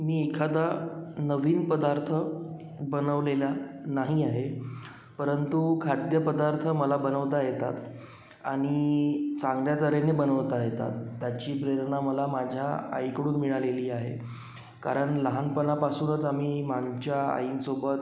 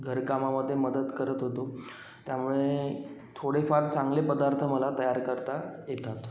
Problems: background sounds at intervals